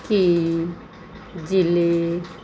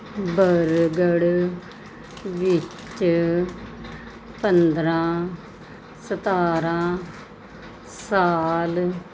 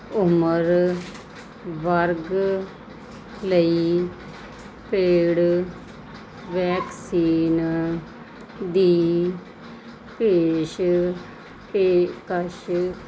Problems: constant background noise